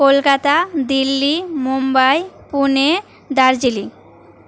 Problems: constant background noise